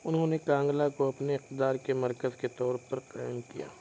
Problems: constant background noise, continuous background conversations